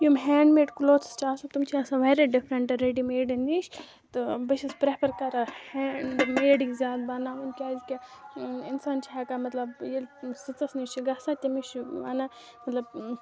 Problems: constant background noise